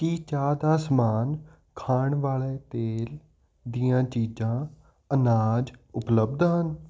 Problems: constant background noise